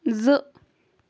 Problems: none marked